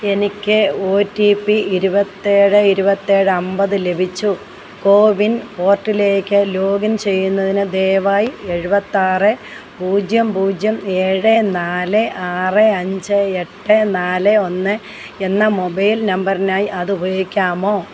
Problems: constant background noise